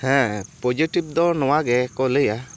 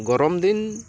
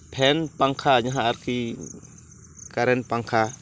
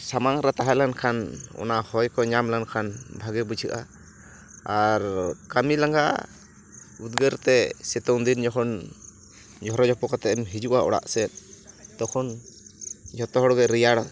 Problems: constant background noise